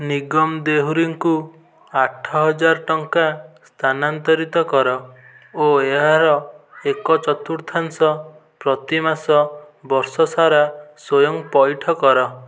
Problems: continuous background conversations